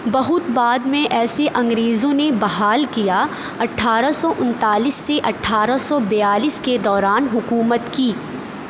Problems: none marked